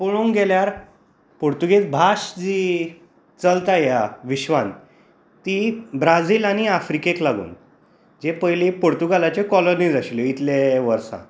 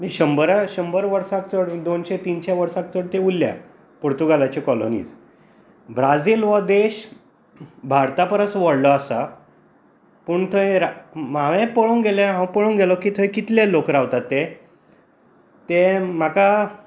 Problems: constant background noise